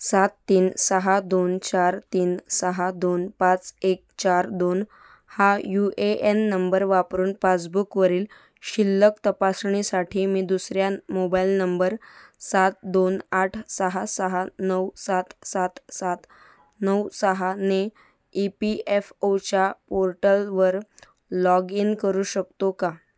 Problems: none marked